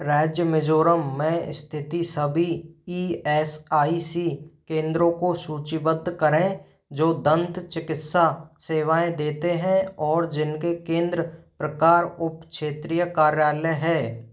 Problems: none marked